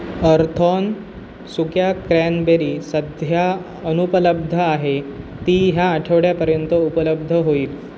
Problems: none marked